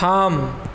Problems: none marked